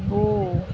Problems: constant background noise